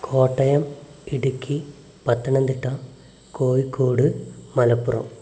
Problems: background sounds at intervals, low volume